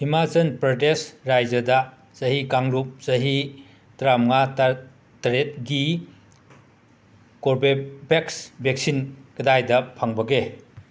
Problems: constant background noise